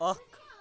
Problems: none marked